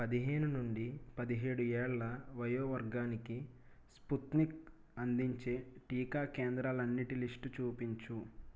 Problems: low volume